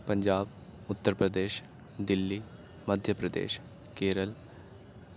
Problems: constant background noise